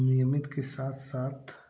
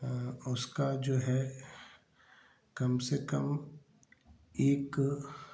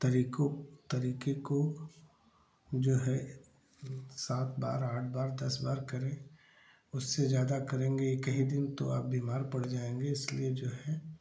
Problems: constant background noise